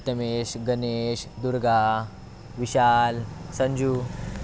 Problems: constant background noise